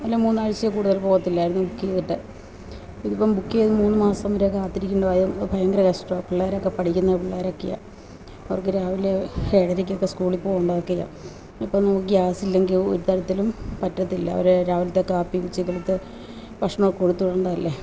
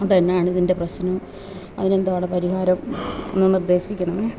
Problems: none marked